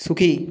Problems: background sounds at intervals